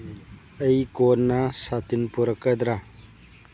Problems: low volume